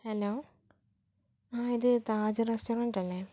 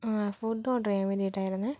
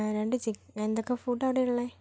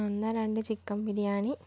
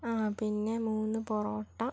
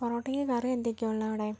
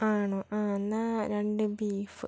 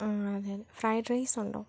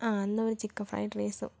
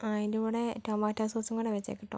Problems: low volume